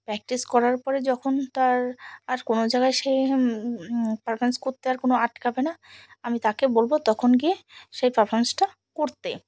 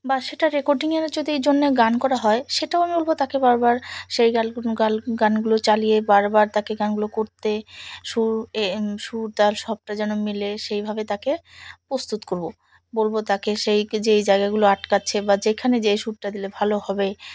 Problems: background sounds at intervals